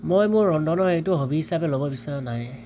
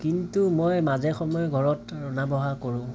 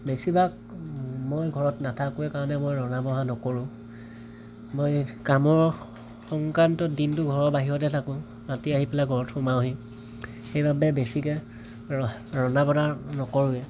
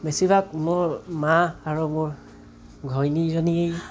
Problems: background sounds at intervals